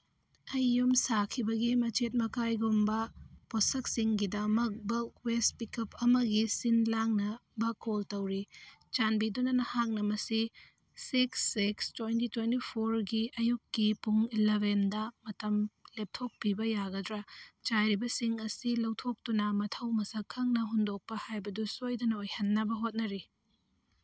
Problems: none marked